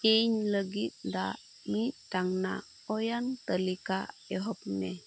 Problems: constant background noise